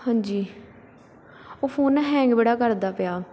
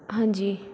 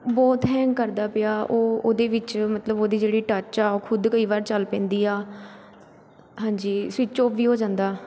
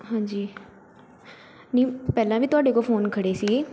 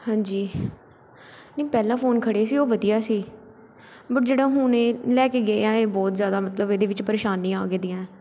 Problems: background sounds at intervals